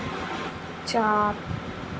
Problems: constant background noise